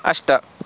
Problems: constant background noise